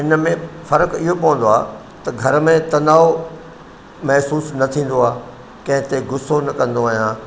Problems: constant background noise, echo